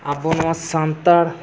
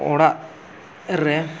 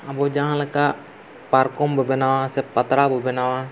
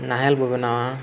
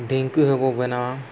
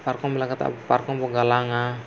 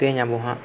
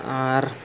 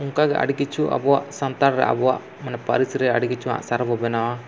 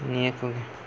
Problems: constant background noise